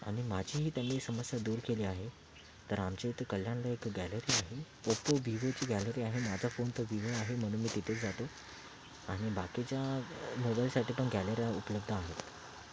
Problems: constant background noise, low volume